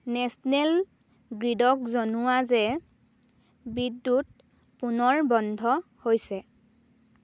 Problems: constant background noise